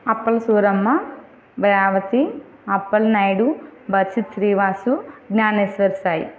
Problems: none marked